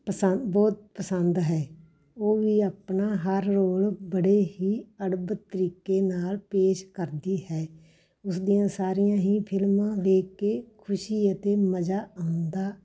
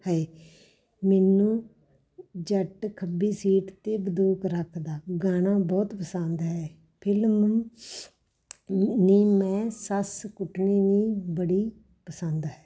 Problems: background sounds at intervals, background conversations at intervals